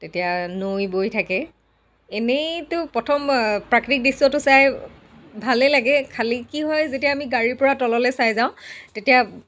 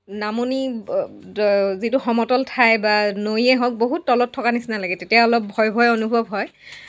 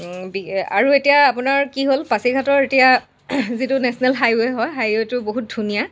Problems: none marked